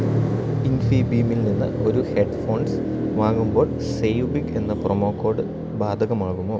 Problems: constant background noise